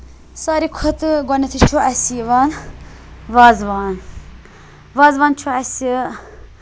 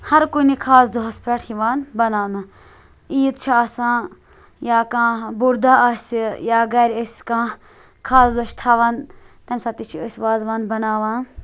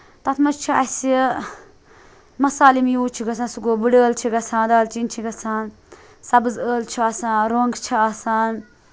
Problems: none marked